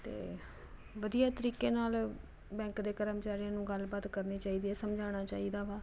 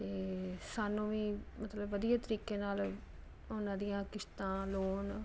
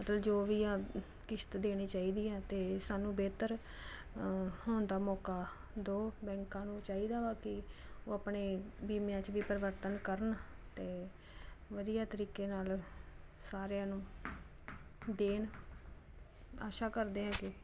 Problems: constant background noise